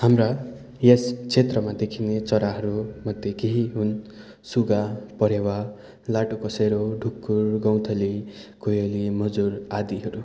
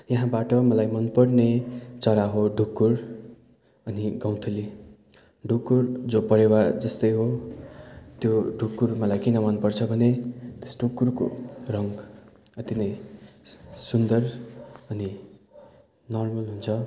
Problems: background conversations at intervals